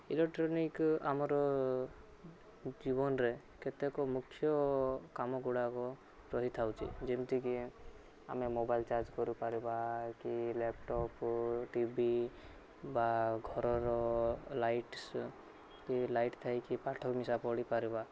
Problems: none marked